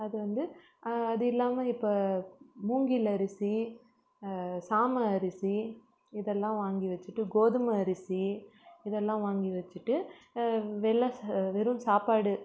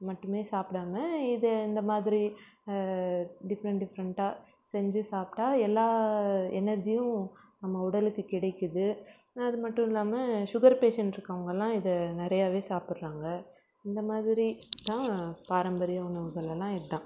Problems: background sounds at intervals